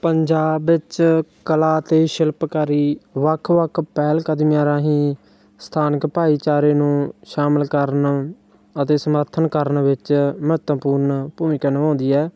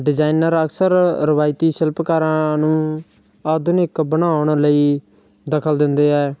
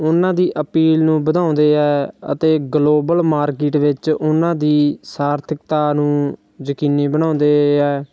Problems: none marked